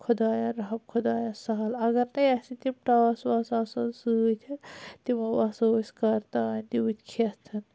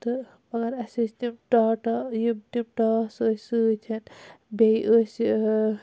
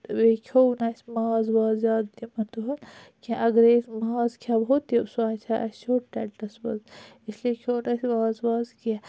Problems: none marked